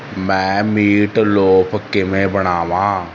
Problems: constant background noise